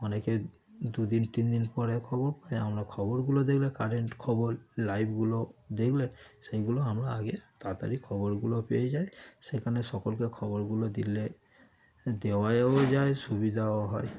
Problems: constant background noise